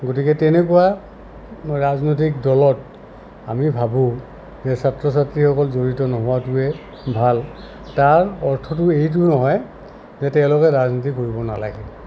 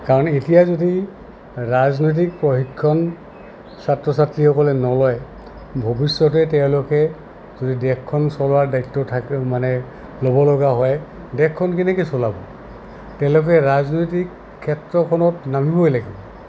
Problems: constant background noise